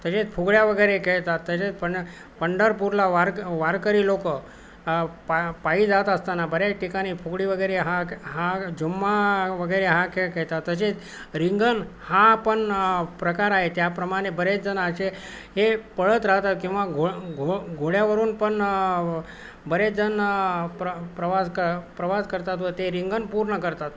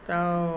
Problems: none marked